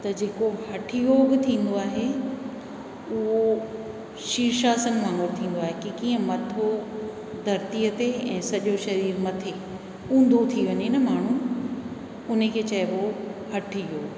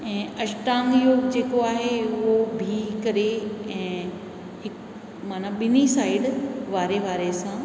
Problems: background conversations at intervals, echo